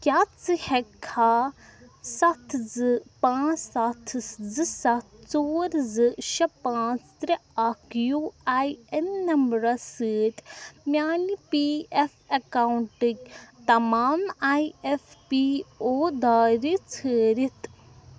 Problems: constant background noise